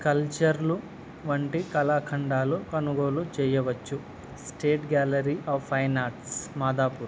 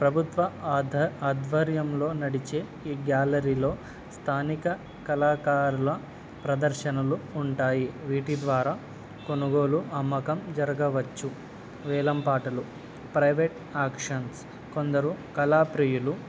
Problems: none marked